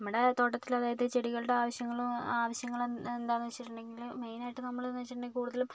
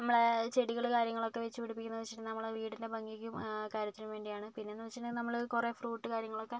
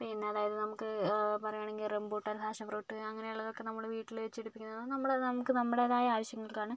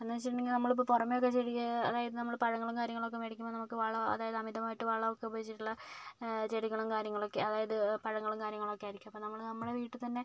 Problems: low volume